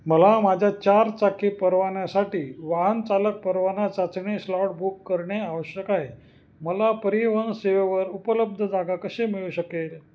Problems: constant background noise